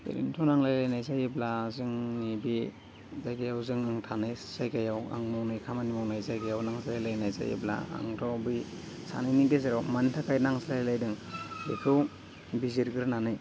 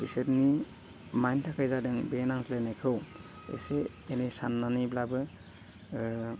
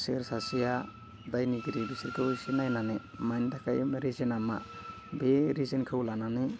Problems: low volume